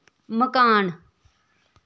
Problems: none marked